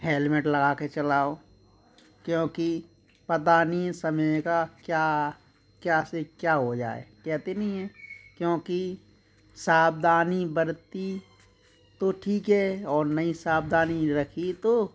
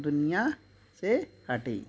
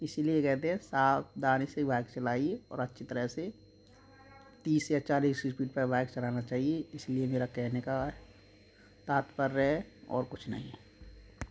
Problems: constant background noise